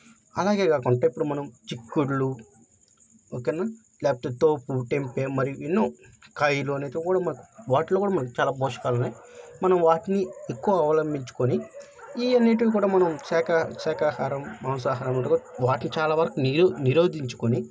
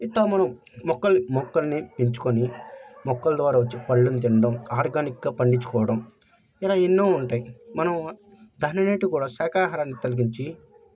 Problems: background conversations at intervals